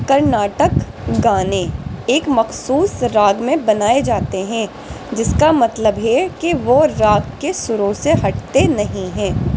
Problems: constant background noise